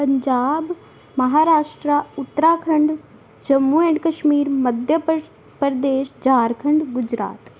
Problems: background sounds at intervals